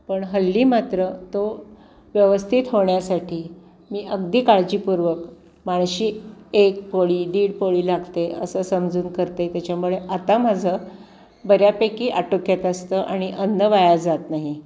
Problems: constant background noise, background conversations at intervals